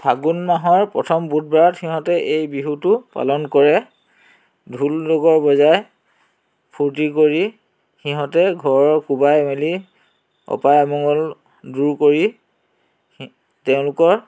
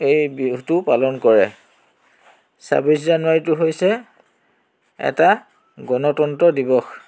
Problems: none marked